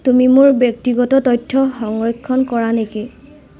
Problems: constant background noise